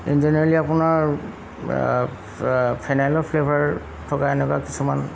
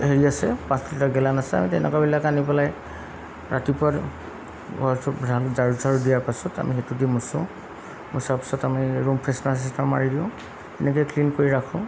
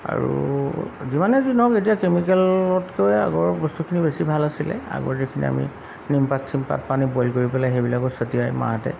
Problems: constant background noise